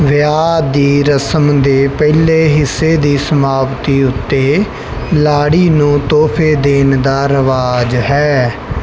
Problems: none marked